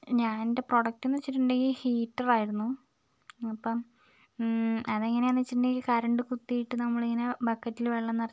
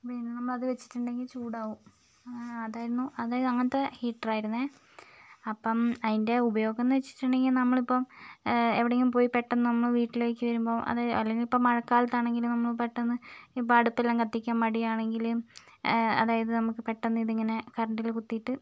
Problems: low volume